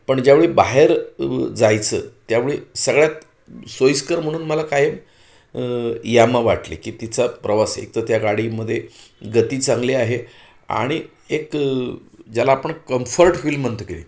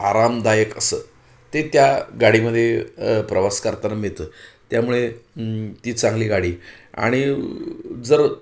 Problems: none marked